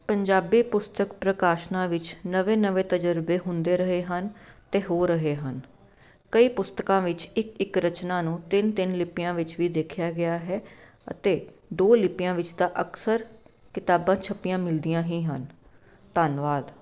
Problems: background sounds at intervals